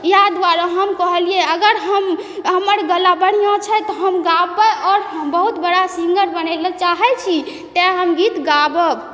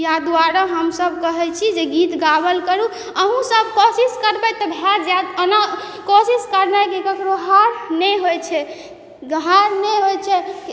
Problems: none marked